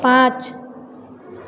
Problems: none marked